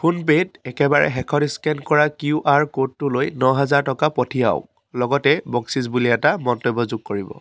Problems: none marked